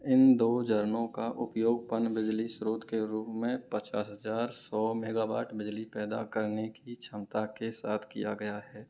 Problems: low volume